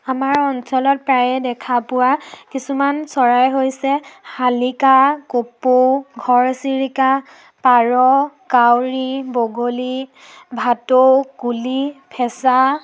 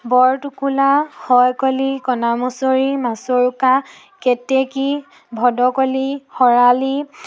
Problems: none marked